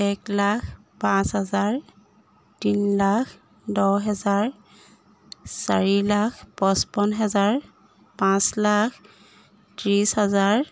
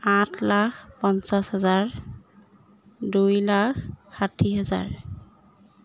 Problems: background sounds at intervals